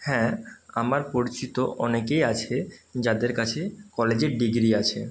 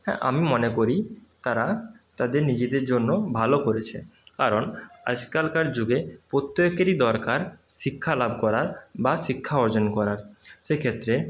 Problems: constant background noise